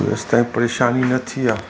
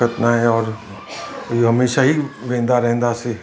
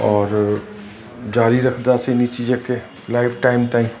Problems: constant background noise